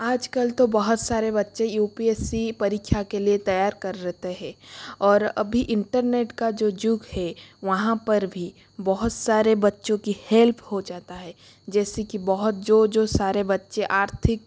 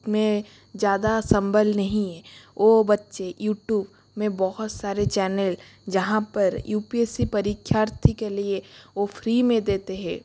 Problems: constant background noise